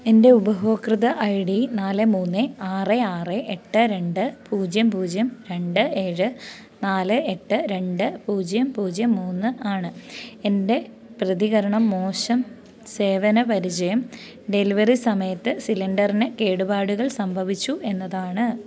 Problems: none marked